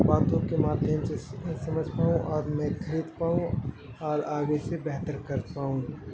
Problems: constant background noise